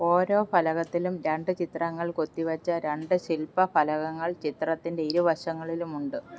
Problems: background sounds at intervals